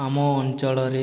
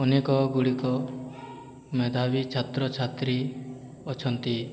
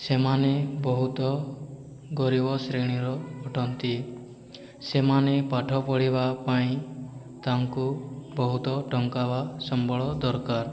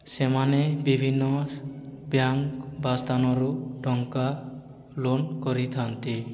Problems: background conversations at intervals